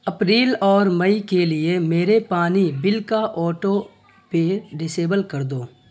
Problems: constant background noise